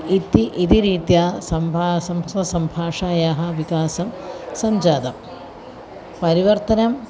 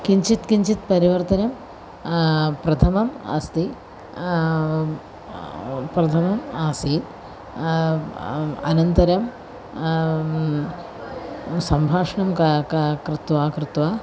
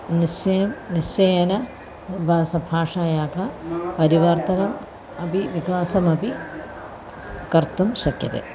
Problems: constant background noise, continuous background conversations